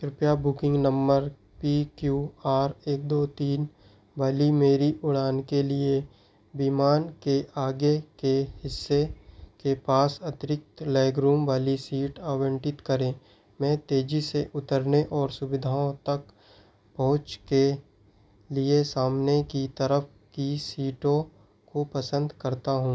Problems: none marked